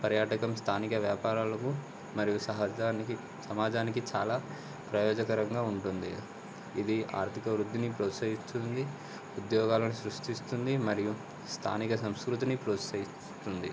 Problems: constant background noise